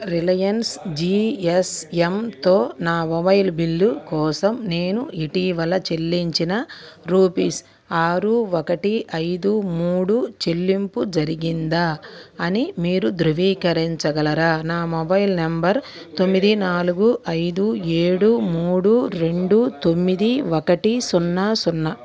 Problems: continuous background conversations